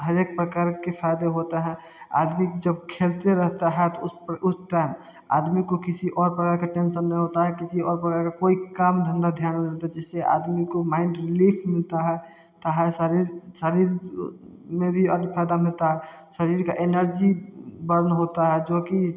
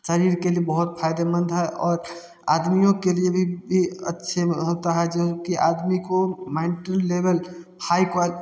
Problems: none marked